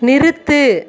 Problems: background sounds at intervals